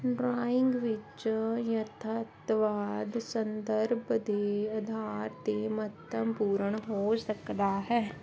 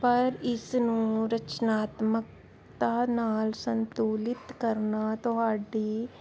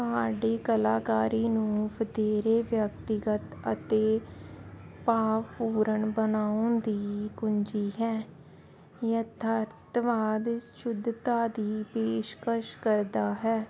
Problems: constant background noise